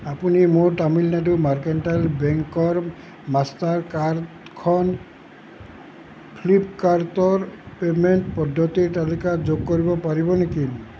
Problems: constant background noise